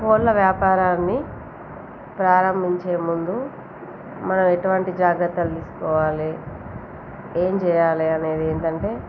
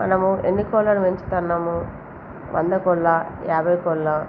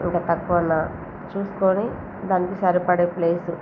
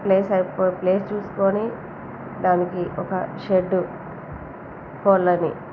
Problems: constant background noise, background conversations at intervals